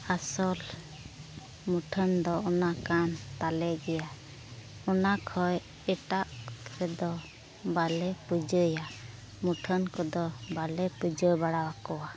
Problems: background sounds at intervals, low volume